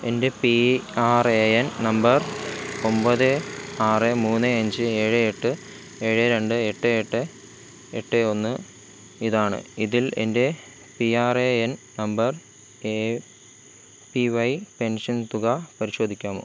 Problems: constant background noise